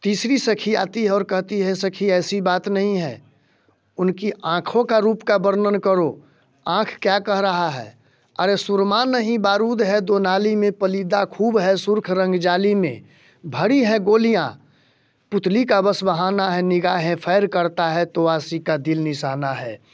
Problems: none marked